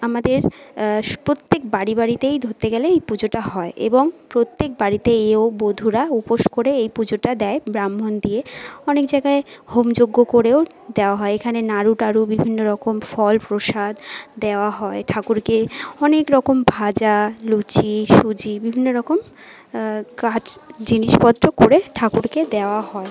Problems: background sounds at intervals, continuous background conversations